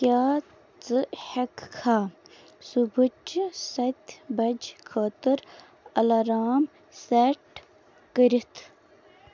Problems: constant background noise